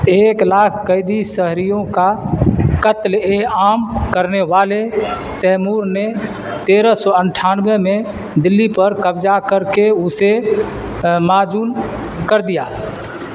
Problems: constant background noise